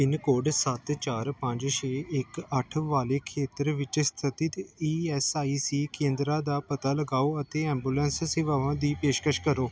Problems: background sounds at intervals